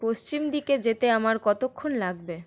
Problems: none marked